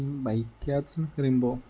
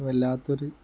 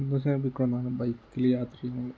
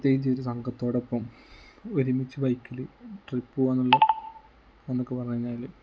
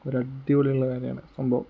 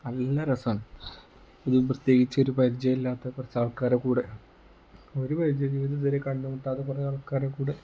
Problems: low volume